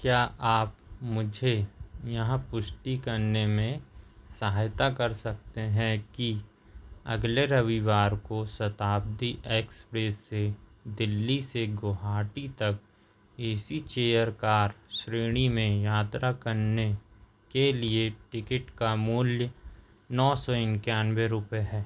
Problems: none marked